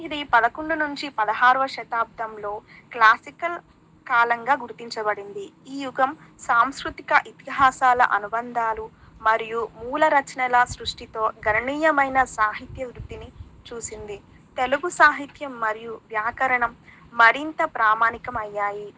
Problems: background sounds at intervals, background conversations at intervals